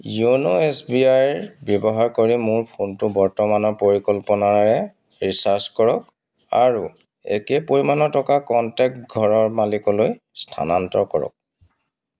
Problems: constant background noise